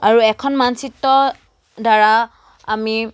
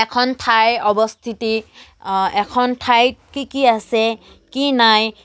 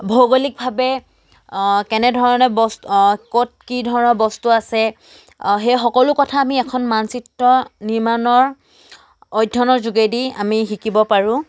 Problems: none marked